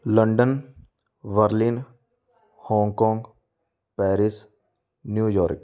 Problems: none marked